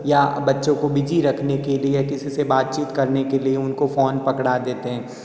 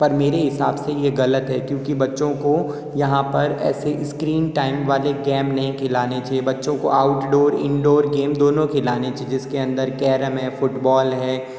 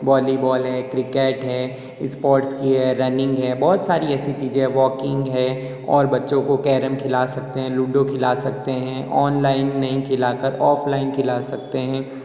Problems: echo